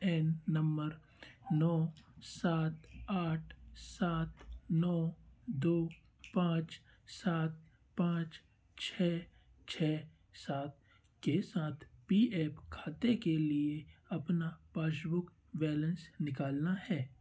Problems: constant background noise